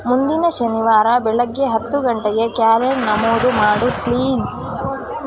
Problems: constant background noise